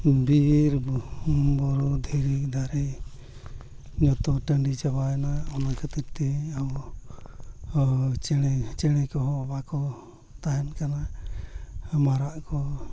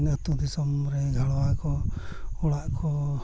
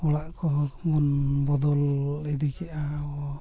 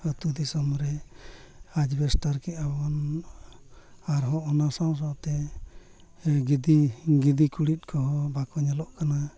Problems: constant background noise, continuous background conversations, low volume